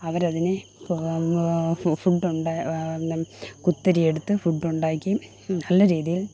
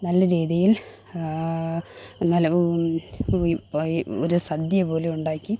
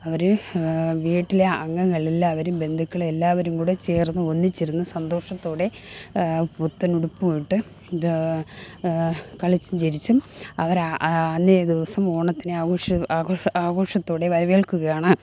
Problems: none marked